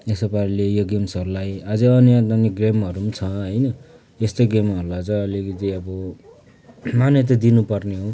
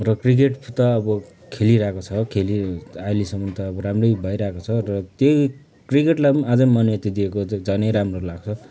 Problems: background conversations at intervals